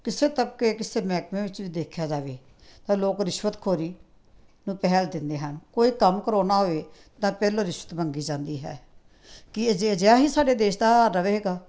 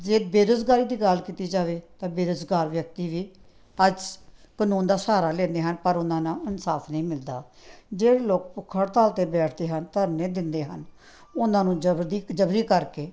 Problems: background sounds at intervals